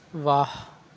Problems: none marked